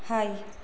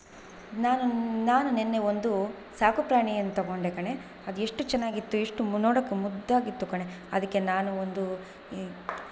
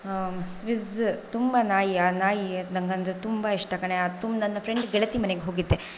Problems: background sounds at intervals